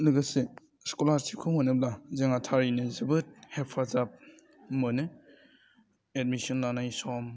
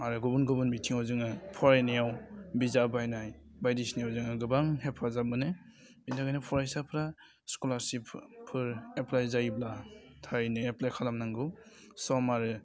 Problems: constant background noise